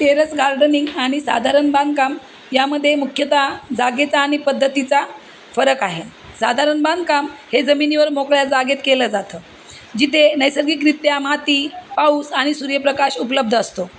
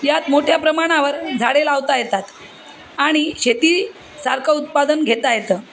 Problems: constant background noise, background conversations at intervals